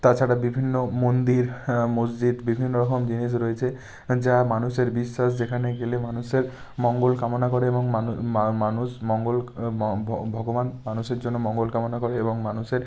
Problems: none marked